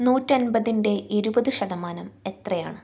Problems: none marked